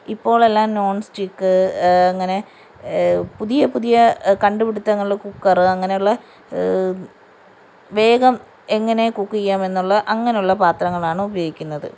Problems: none marked